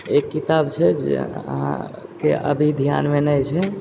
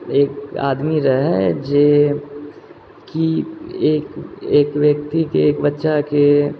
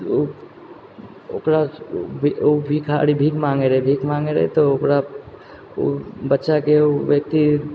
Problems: none marked